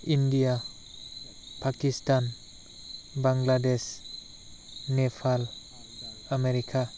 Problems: constant background noise